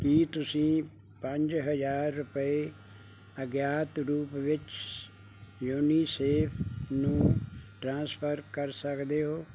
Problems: background sounds at intervals